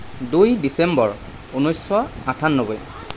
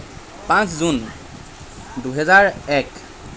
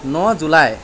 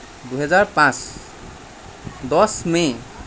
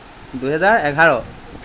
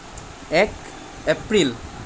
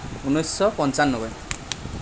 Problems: constant background noise